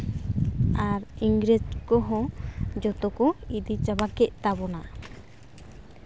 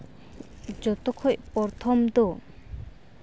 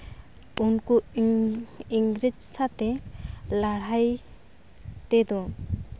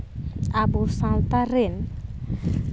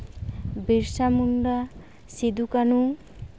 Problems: constant background noise